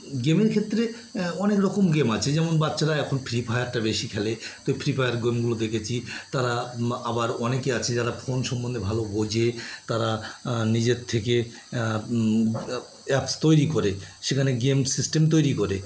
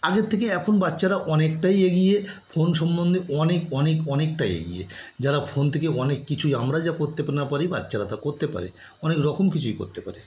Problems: background sounds at intervals